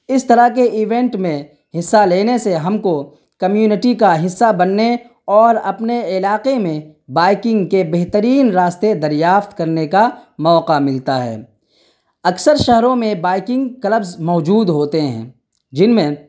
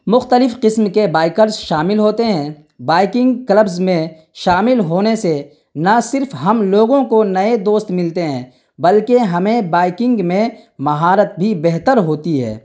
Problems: none marked